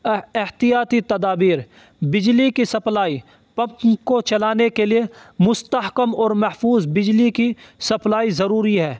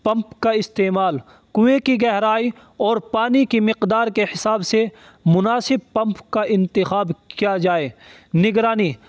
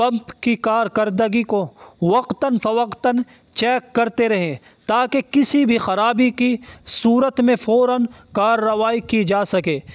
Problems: constant background noise